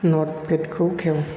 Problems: constant background noise